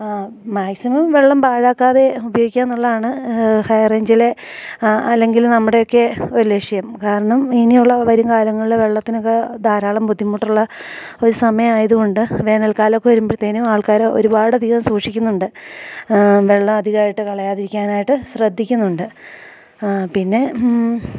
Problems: low volume